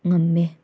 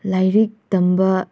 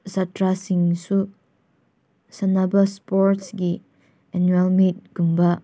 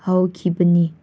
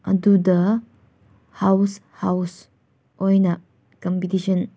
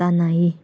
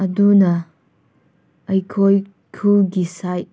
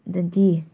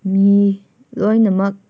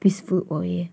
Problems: none marked